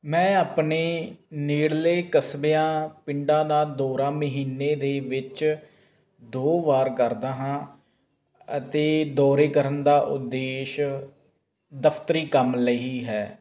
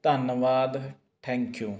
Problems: constant background noise